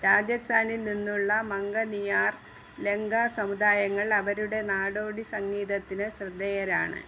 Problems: none marked